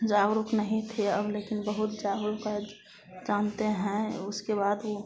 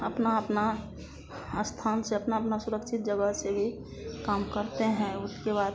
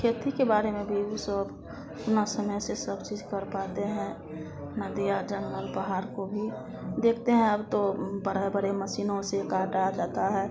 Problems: constant background noise